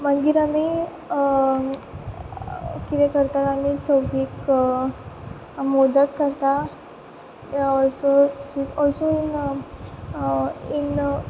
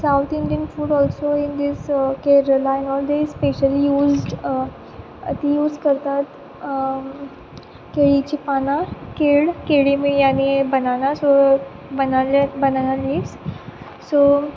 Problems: background sounds at intervals